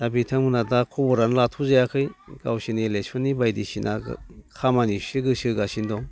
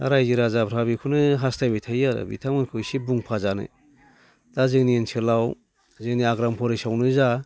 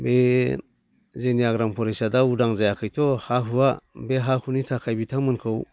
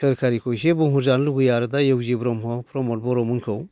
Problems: none marked